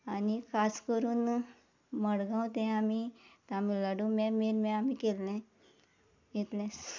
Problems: background sounds at intervals